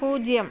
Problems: background sounds at intervals